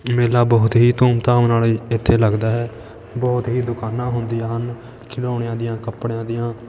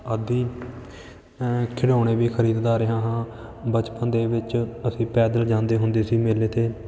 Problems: background sounds at intervals, continuous background conversations